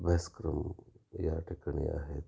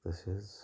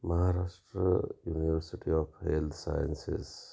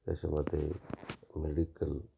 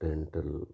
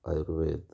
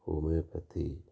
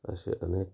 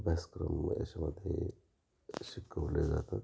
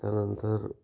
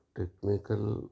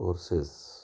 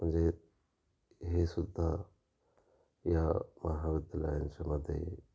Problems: constant background noise, background conversations at intervals